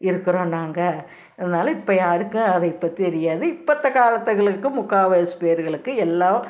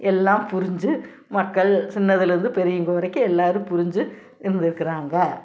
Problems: none marked